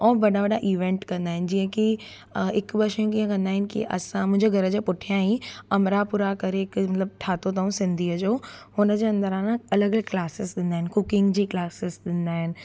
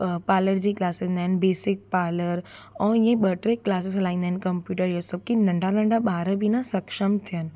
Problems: constant background noise